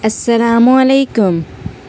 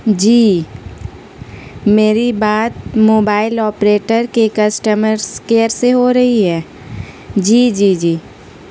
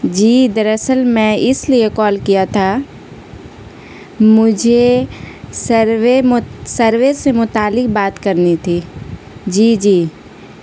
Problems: constant background noise